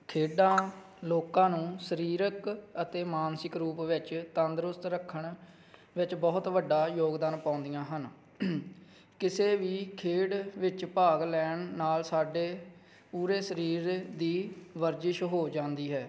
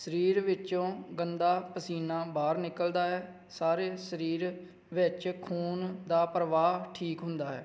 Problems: background sounds at intervals